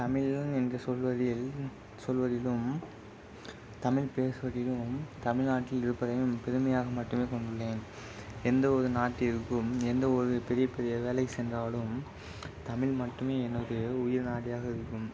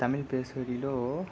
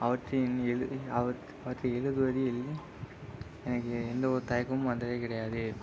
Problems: constant background noise